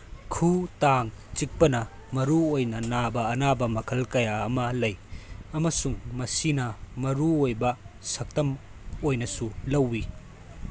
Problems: constant background noise